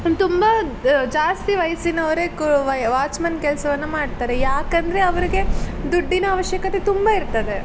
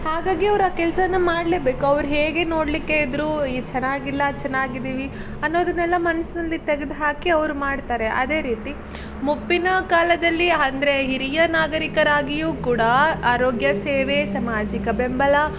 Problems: none marked